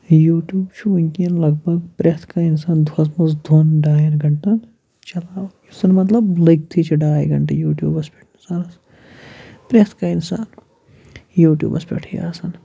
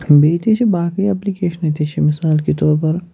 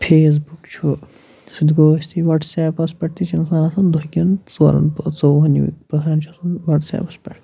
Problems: none marked